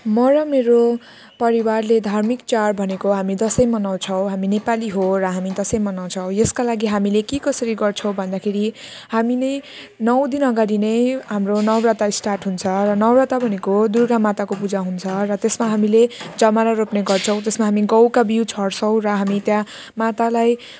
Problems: none marked